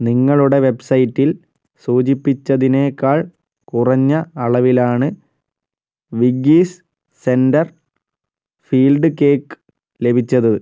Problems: none marked